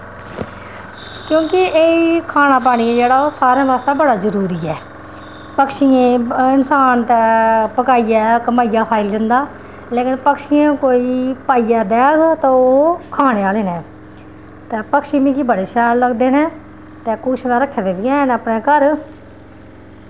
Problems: constant background noise